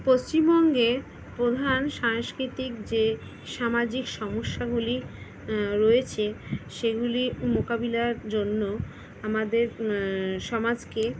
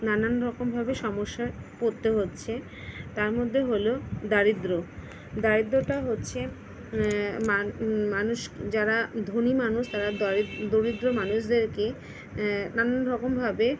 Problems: constant background noise